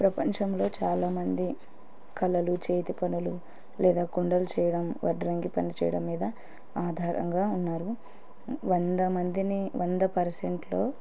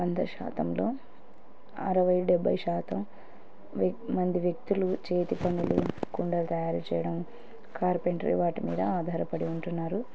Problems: none marked